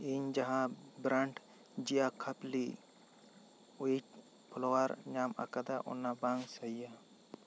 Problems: constant background noise